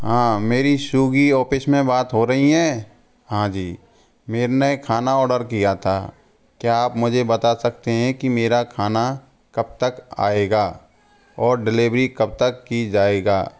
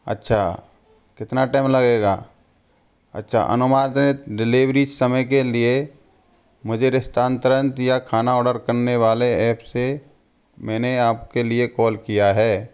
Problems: constant background noise